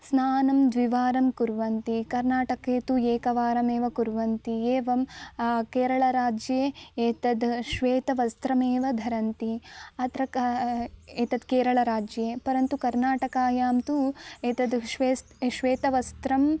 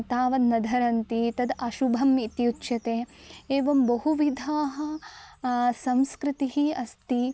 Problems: none marked